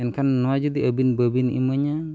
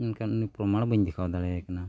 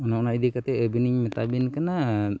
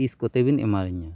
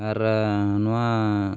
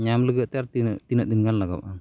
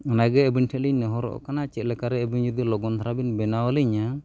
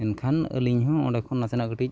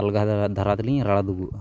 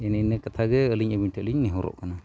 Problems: none marked